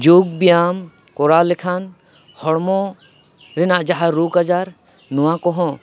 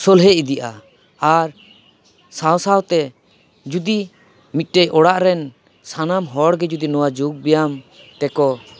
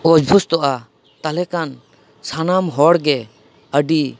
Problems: background conversations at intervals